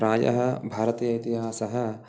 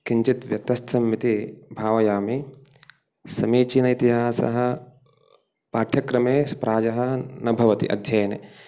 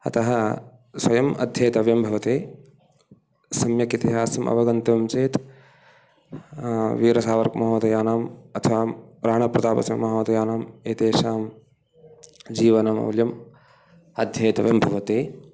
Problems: background sounds at intervals